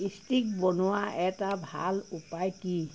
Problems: constant background noise